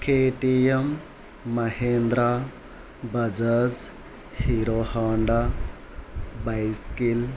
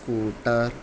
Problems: background sounds at intervals